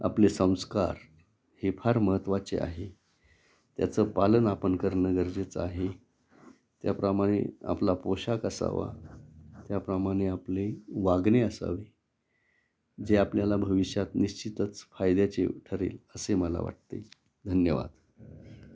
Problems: constant background noise, background conversations at intervals